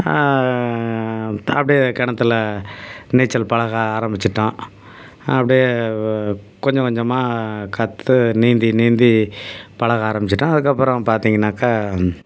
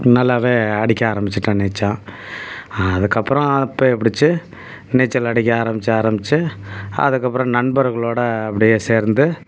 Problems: background sounds at intervals